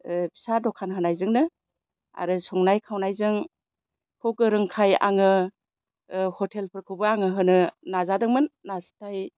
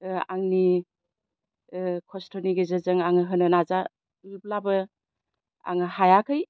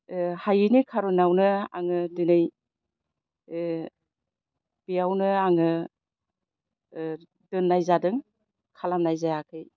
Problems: constant background noise